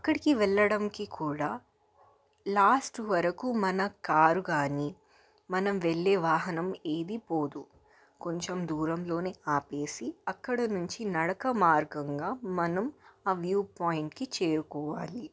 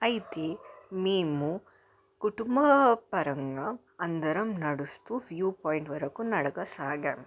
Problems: background sounds at intervals, background conversations at intervals